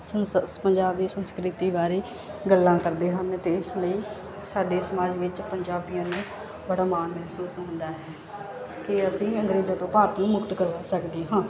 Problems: none marked